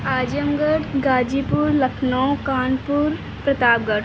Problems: constant background noise